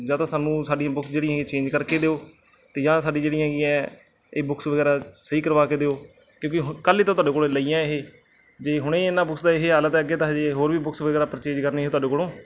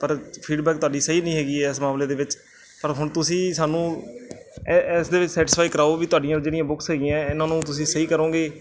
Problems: none marked